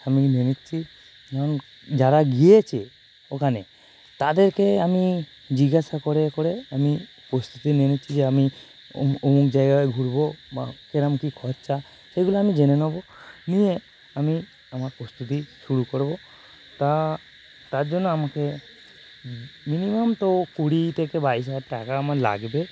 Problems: constant background noise